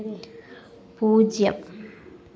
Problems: background conversations at intervals